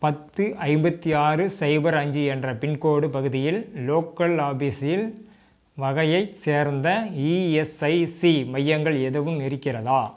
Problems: background sounds at intervals